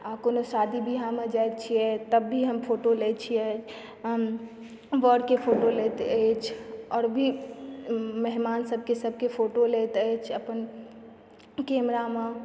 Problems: background sounds at intervals